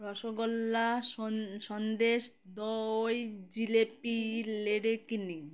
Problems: constant background noise, background conversations at intervals